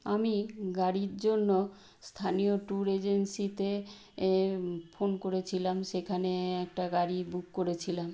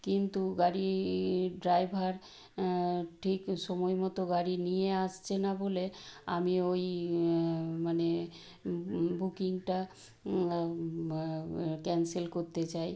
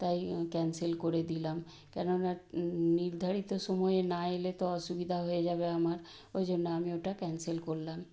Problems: constant background noise